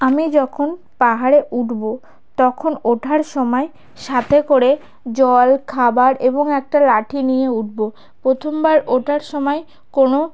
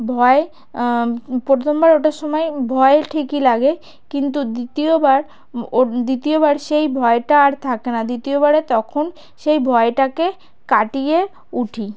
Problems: background sounds at intervals